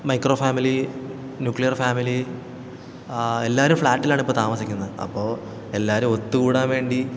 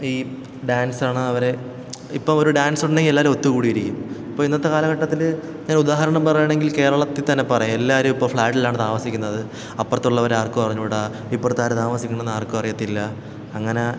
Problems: none marked